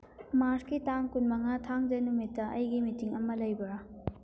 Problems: background sounds at intervals